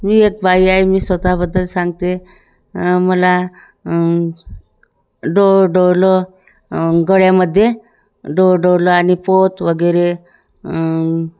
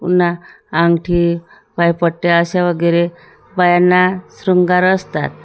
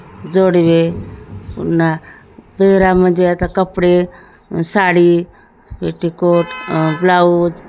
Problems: none marked